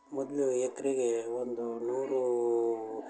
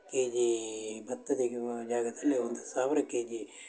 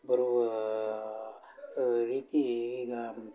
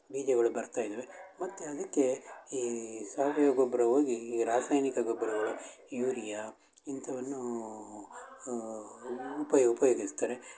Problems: background sounds at intervals, continuous background conversations